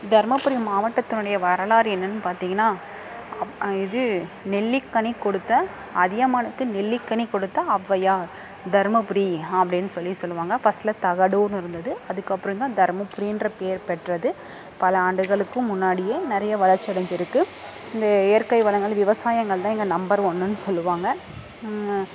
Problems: constant background noise, background conversations at intervals